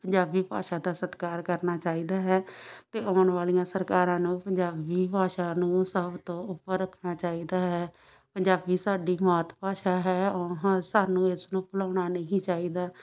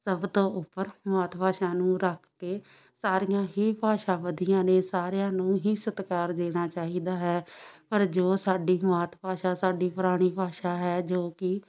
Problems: background sounds at intervals, background conversations at intervals